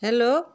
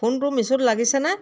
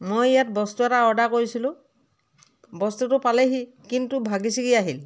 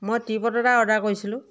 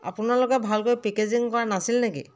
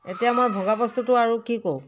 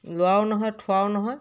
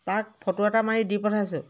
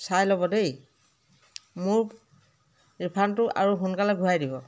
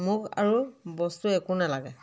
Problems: background conversations at intervals